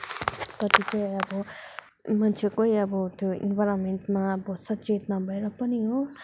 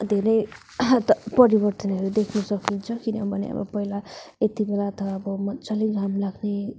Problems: background sounds at intervals